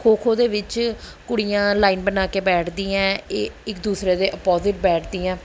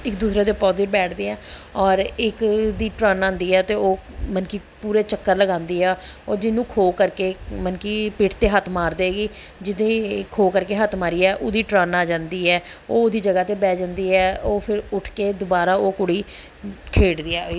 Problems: none marked